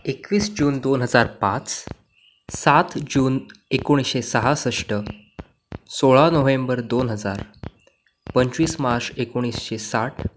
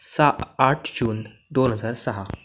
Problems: constant background noise